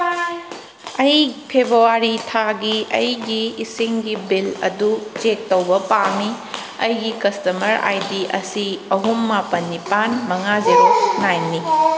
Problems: background sounds at intervals